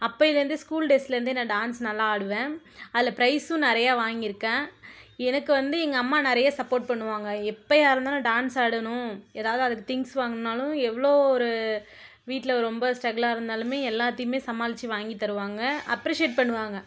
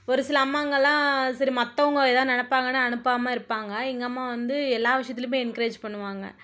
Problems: none marked